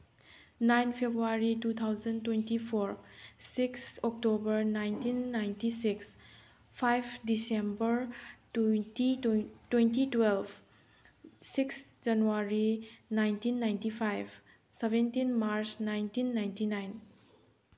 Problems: background sounds at intervals